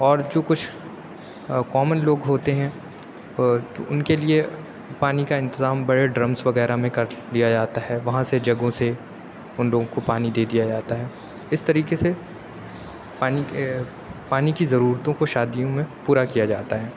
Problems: none marked